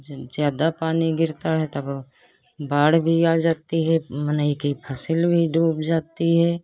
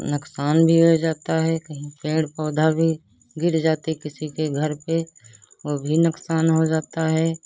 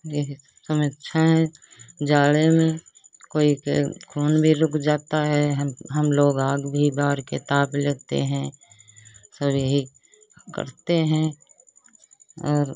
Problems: constant background noise